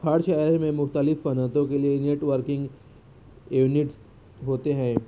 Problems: low volume